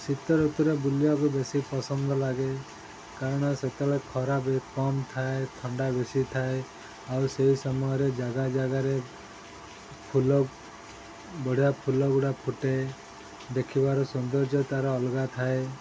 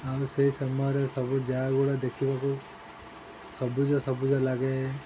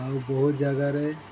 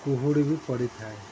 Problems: constant background noise